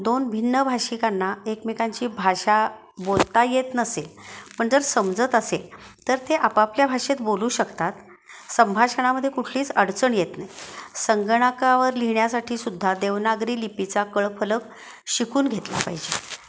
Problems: none marked